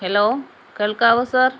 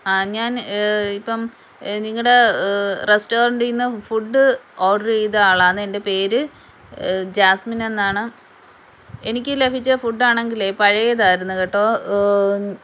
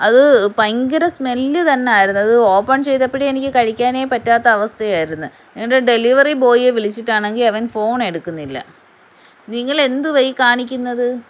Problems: background sounds at intervals